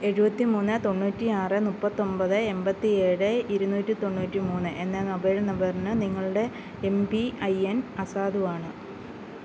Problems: constant background noise